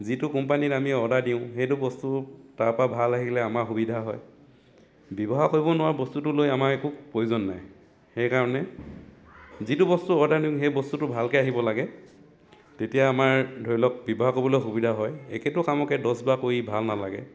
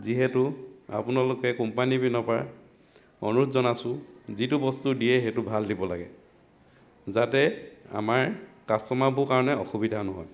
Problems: constant background noise